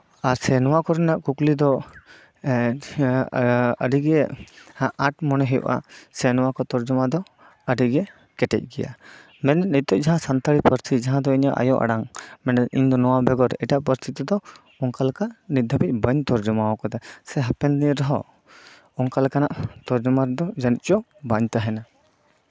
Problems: none marked